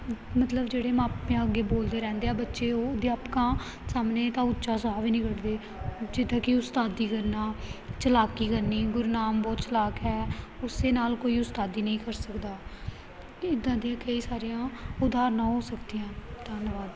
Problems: none marked